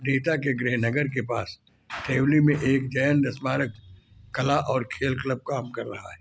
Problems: background sounds at intervals